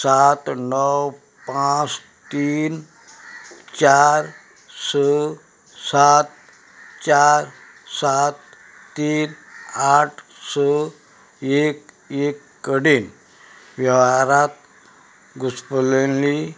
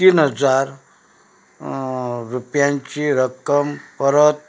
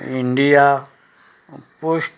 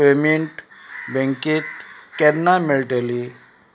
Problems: background sounds at intervals